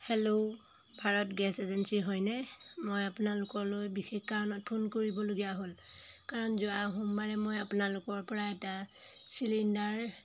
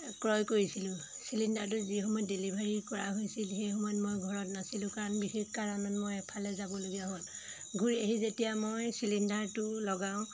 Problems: constant background noise